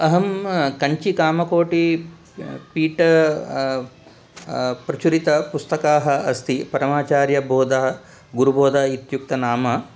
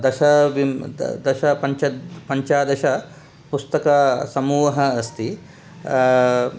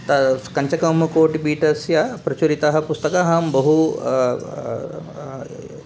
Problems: constant background noise